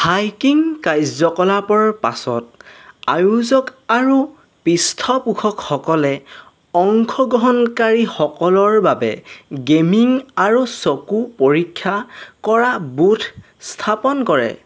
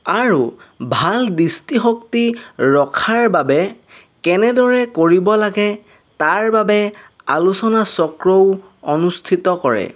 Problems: none marked